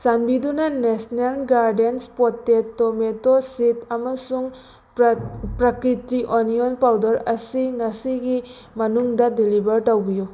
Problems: constant background noise